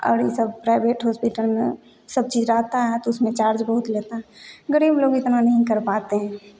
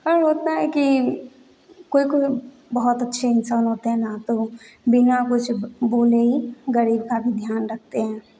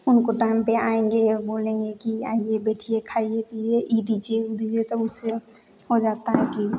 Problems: none marked